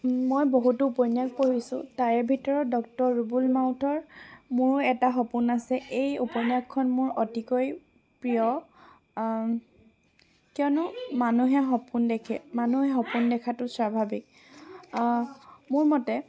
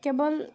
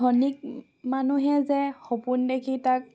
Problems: background sounds at intervals, continuous background conversations